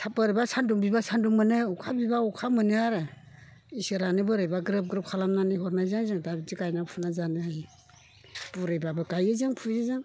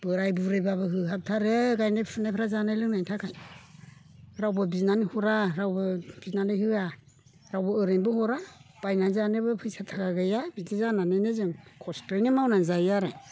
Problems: constant background noise